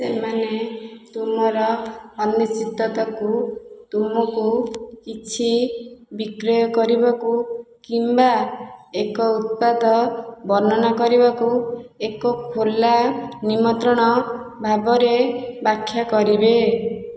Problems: constant background noise